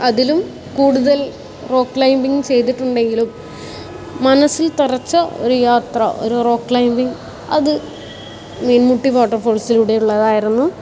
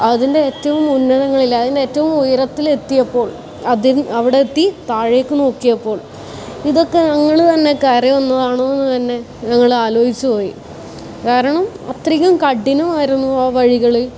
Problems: background sounds at intervals